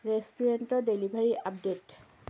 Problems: low volume